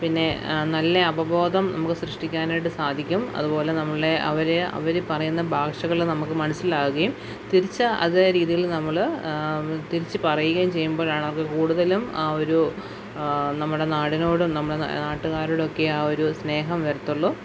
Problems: background sounds at intervals